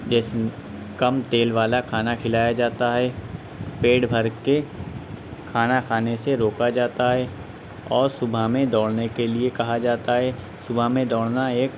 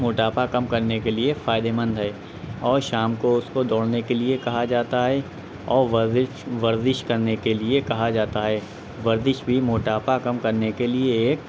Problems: constant background noise